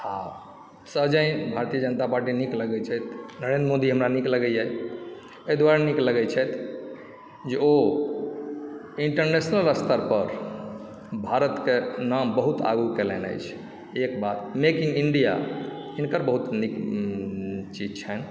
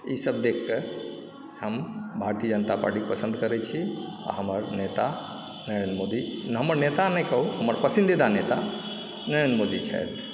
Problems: background sounds at intervals, low volume